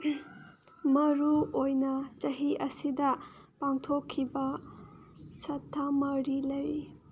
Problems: none marked